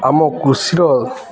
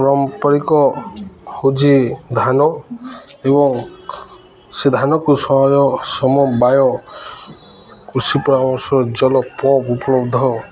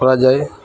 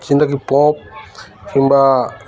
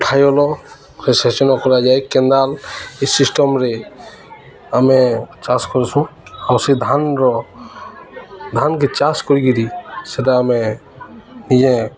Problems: constant background noise, continuous background conversations